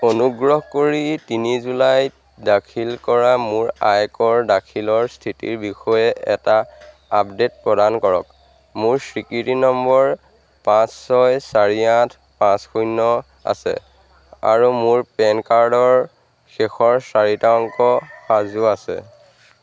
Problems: constant background noise